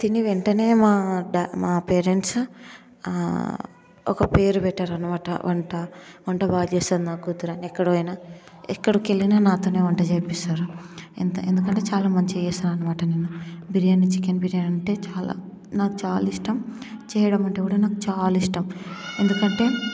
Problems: constant background noise